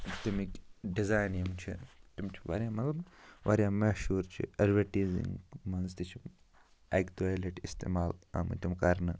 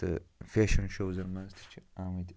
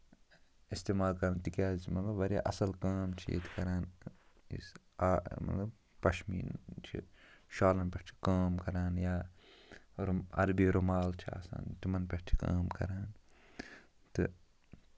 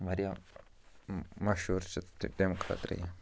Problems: low volume